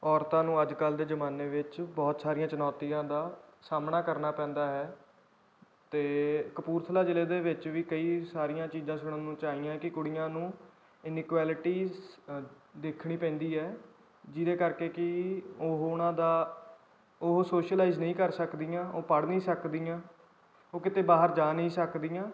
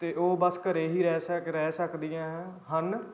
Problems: background conversations at intervals